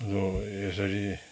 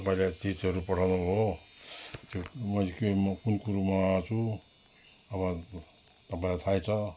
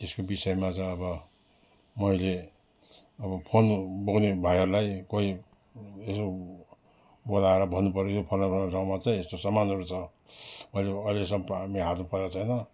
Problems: background sounds at intervals